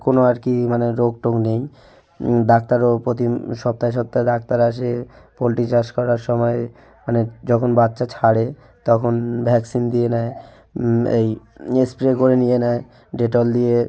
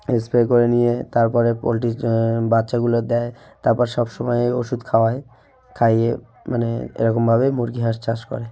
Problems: background sounds at intervals, background conversations at intervals